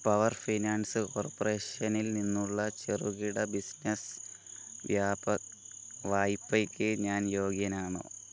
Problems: constant background noise